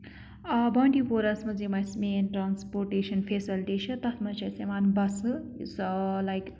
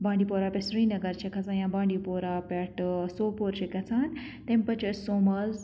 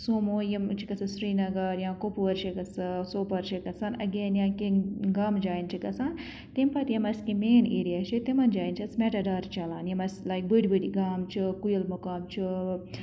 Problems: none marked